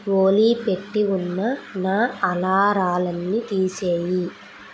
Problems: constant background noise